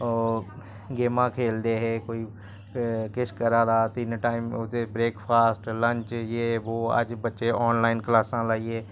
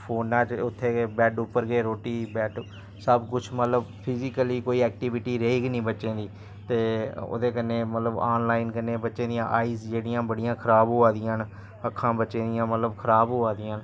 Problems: constant background noise